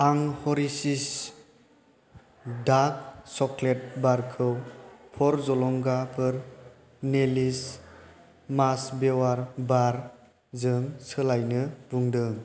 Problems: constant background noise